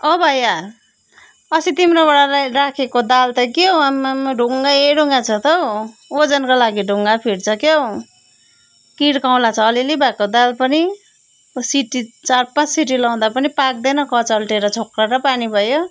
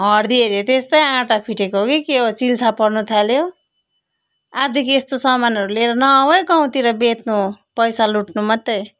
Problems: background sounds at intervals